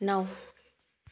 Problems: none marked